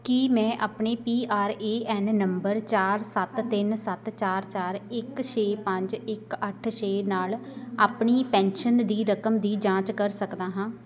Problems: background conversations at intervals